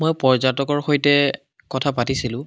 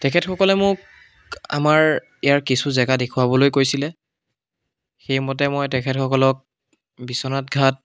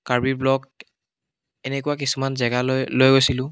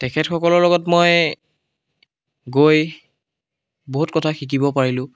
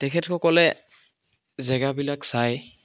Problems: background sounds at intervals, background conversations at intervals